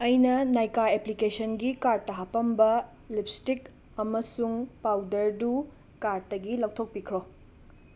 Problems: background sounds at intervals